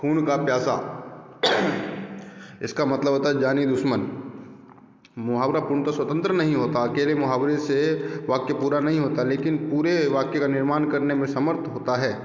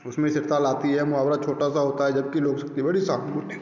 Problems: constant background noise